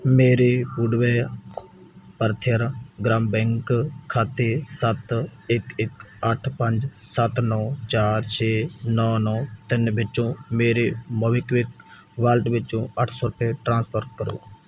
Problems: background sounds at intervals